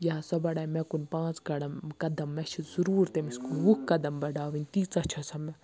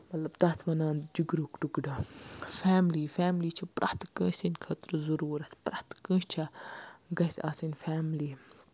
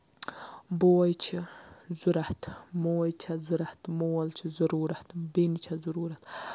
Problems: none marked